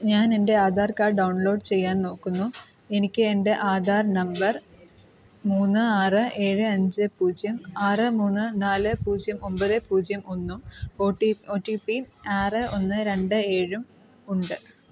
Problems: background sounds at intervals